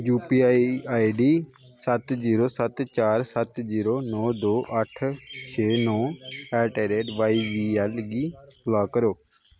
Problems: constant background noise